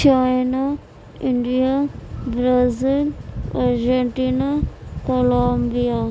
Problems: none marked